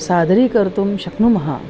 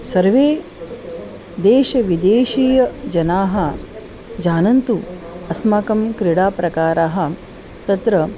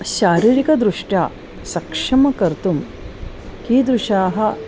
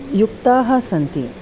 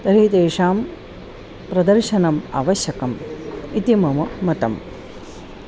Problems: constant background noise